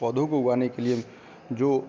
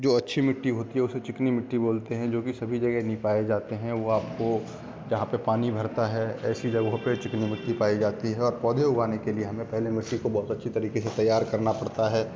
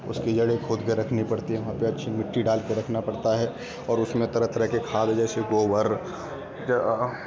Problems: background sounds at intervals